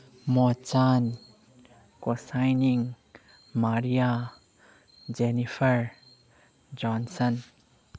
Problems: background conversations at intervals